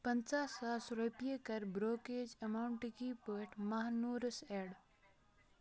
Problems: continuous background conversations